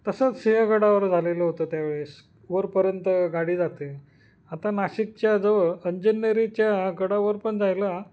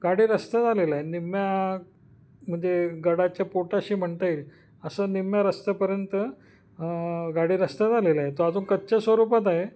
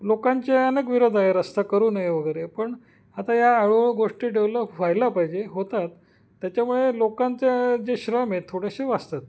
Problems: background sounds at intervals